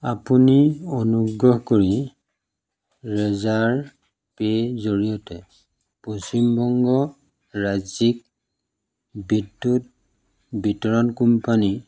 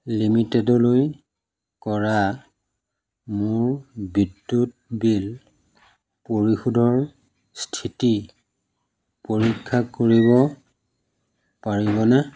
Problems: none marked